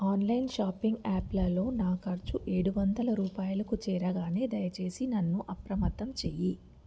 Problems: none marked